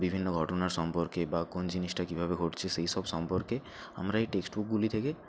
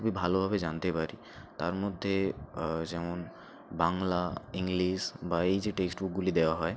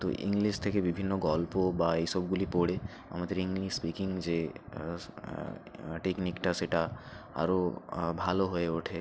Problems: none marked